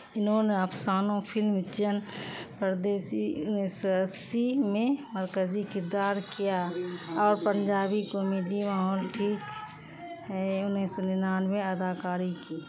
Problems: constant background noise